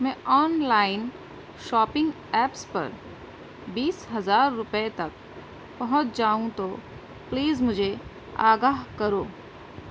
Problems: constant background noise